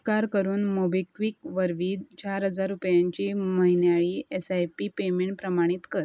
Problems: constant background noise